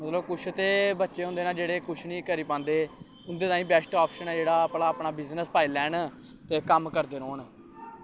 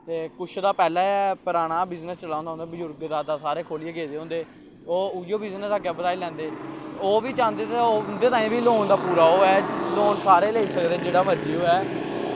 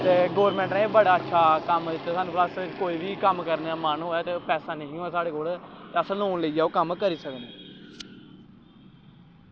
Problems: constant background noise